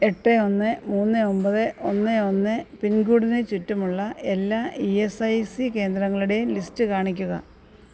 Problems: none marked